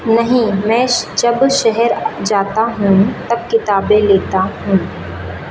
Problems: none marked